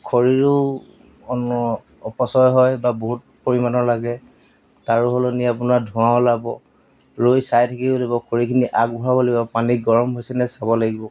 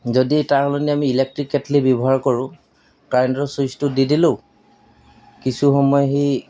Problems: background sounds at intervals